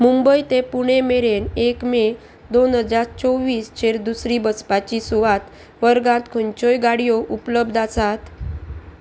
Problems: constant background noise